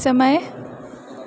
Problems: background conversations at intervals